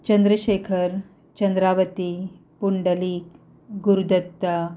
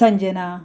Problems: background sounds at intervals